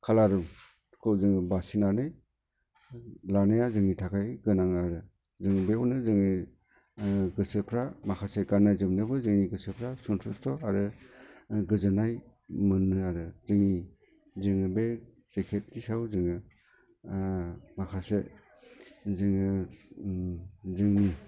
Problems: constant background noise